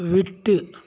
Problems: none marked